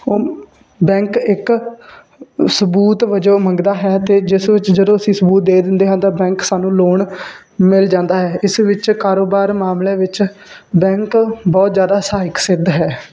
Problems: constant background noise